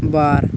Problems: constant background noise